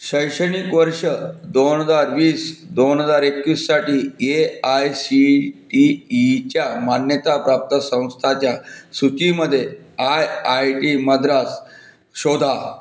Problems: none marked